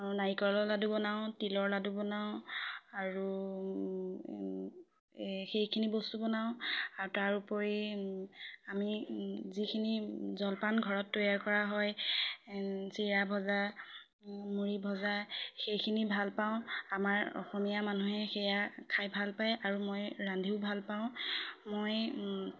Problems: background sounds at intervals, background conversations at intervals